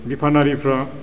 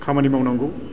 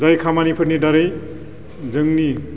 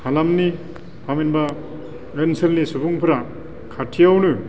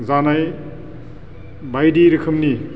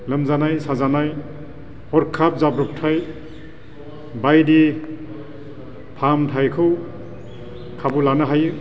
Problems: constant background noise